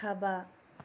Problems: low volume